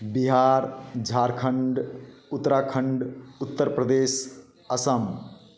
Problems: background sounds at intervals, echo